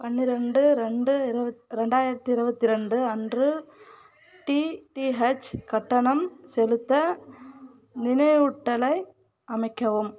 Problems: none marked